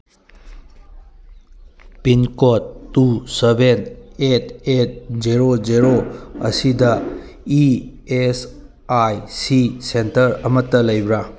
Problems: none marked